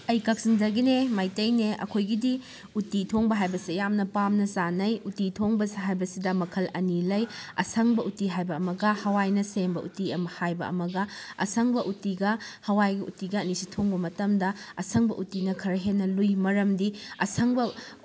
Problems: background sounds at intervals